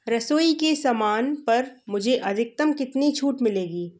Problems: background sounds at intervals